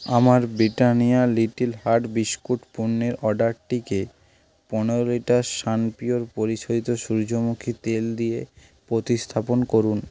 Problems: background sounds at intervals